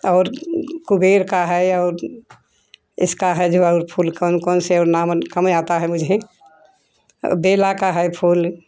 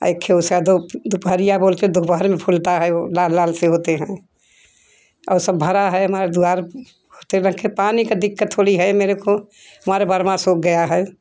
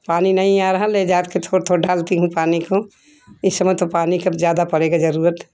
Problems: constant background noise